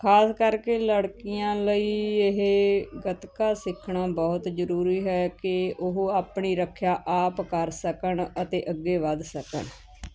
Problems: none marked